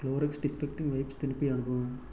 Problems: low volume